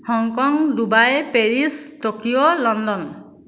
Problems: none marked